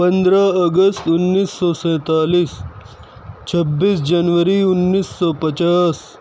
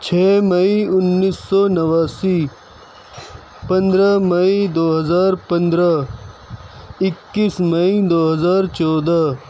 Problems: constant background noise